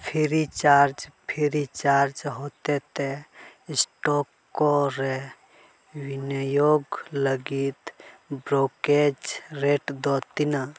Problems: none marked